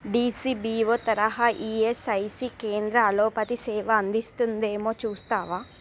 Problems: none marked